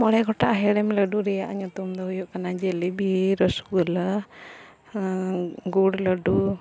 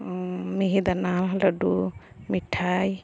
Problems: background sounds at intervals